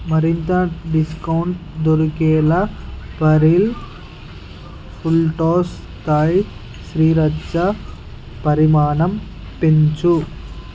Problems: constant background noise